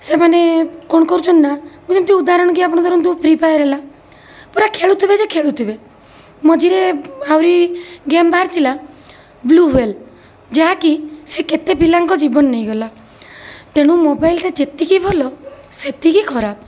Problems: constant background noise